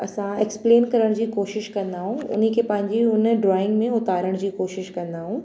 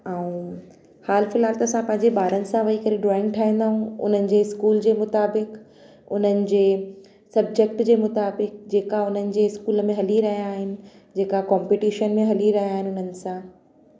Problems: constant background noise, echo